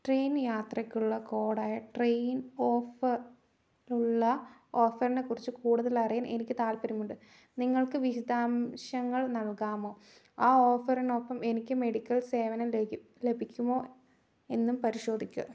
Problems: none marked